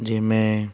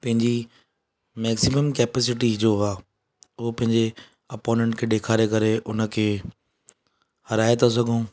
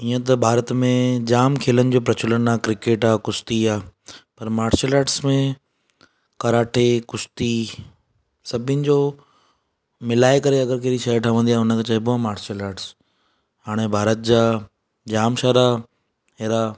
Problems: none marked